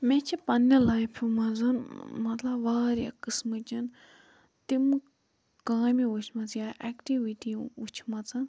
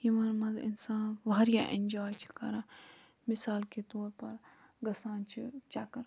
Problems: low volume